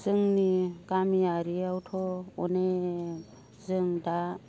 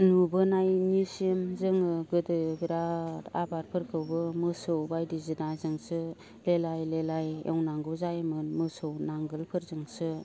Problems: low volume